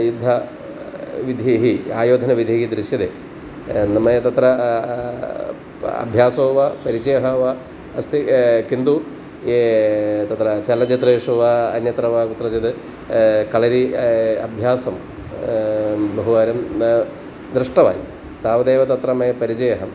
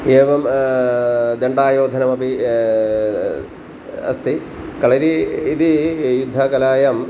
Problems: constant background noise